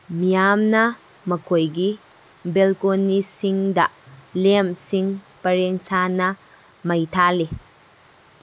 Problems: background sounds at intervals